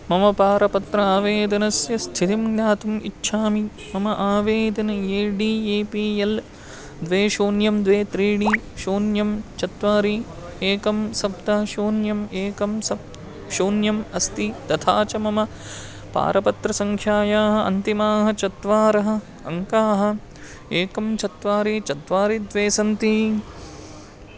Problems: constant background noise, continuous background conversations